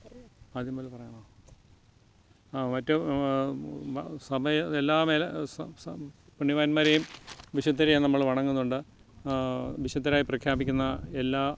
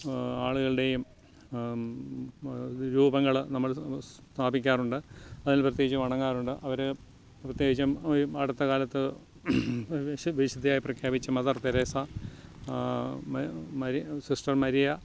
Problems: background sounds at intervals